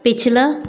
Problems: echo